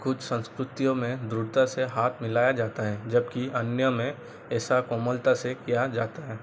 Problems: none marked